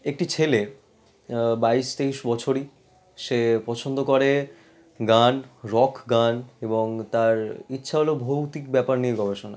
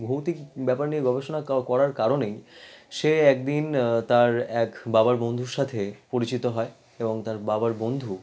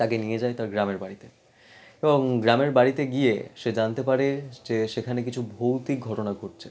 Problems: background sounds at intervals